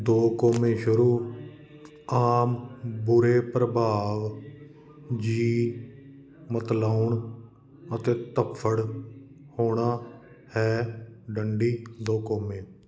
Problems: continuous background conversations